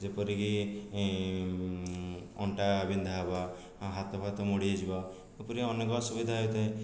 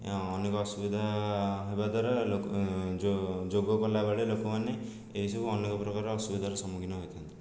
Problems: none marked